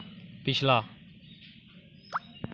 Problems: none marked